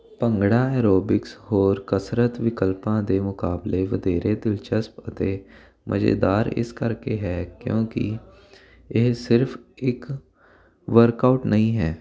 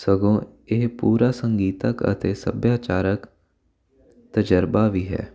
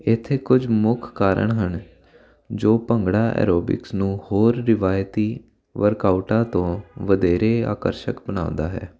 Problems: constant background noise